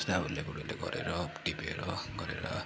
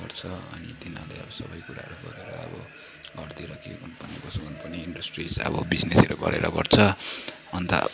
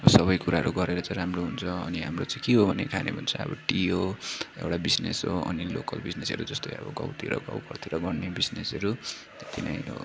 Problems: constant background noise, low volume